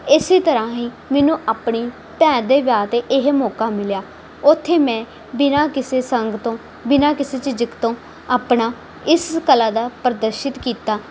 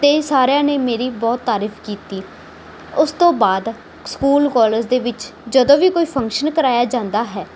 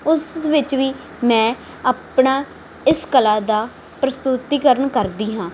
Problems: background sounds at intervals